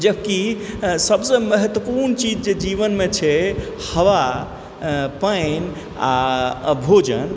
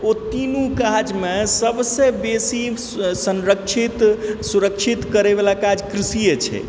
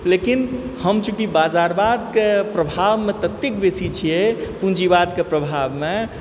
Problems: constant background noise